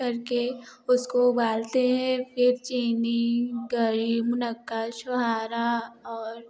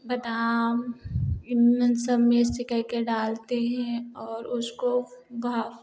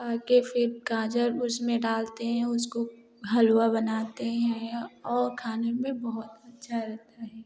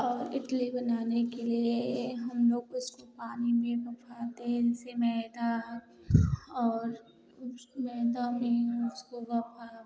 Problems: background sounds at intervals, continuous background conversations